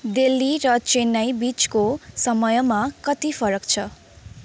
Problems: background sounds at intervals